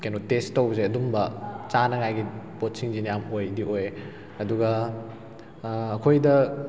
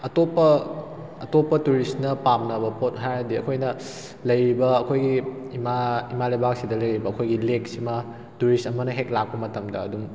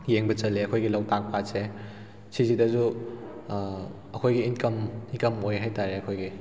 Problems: background sounds at intervals